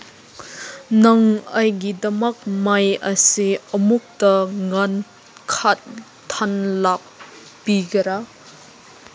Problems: background sounds at intervals